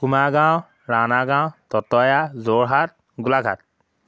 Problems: none marked